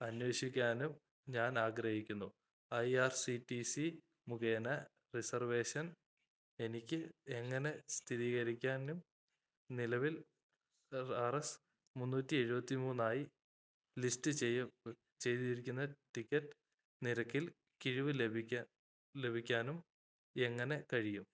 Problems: low volume